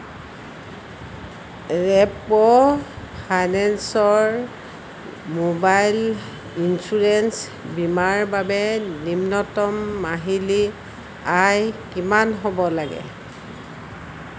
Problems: none marked